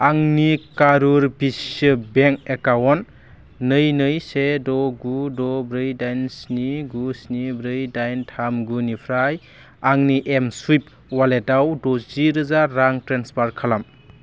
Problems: low volume